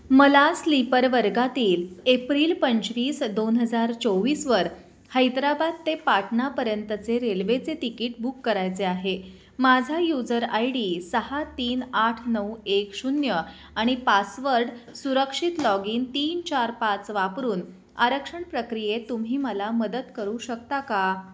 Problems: background sounds at intervals